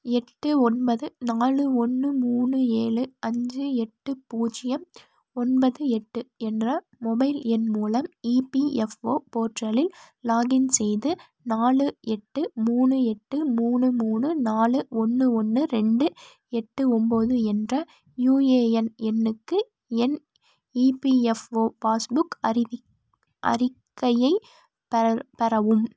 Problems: none marked